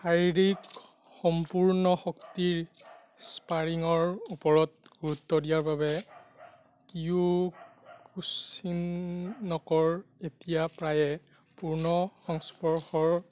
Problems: background sounds at intervals